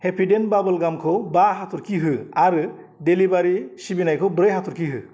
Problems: constant background noise